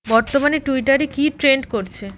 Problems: constant background noise